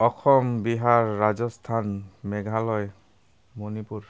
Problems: none marked